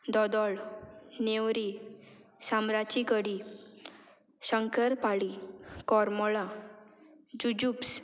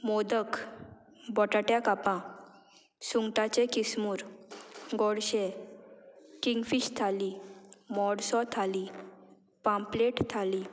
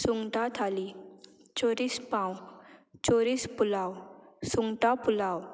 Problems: background sounds at intervals